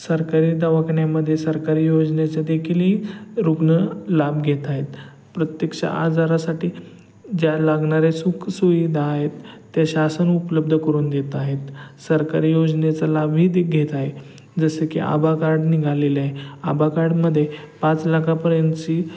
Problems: constant background noise